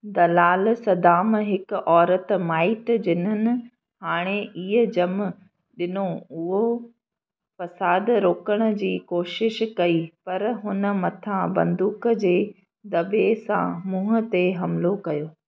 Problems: none marked